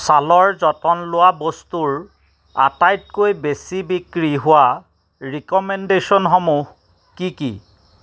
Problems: none marked